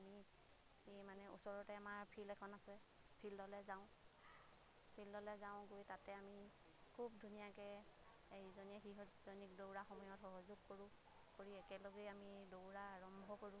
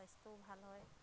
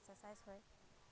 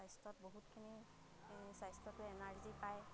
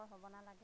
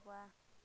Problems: constant background noise, background conversations at intervals